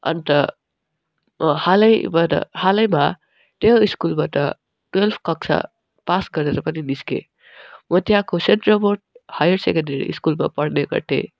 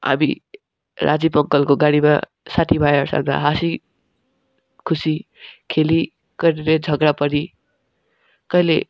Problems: constant background noise, background conversations at intervals